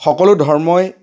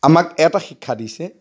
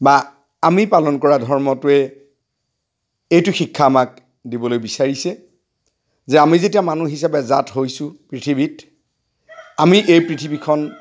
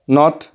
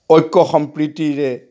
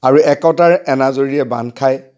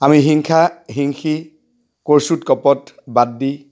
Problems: background sounds at intervals